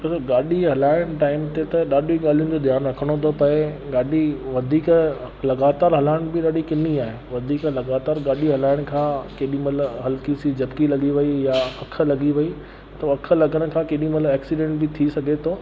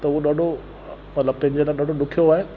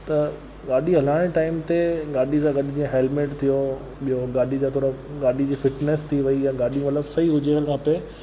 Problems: constant background noise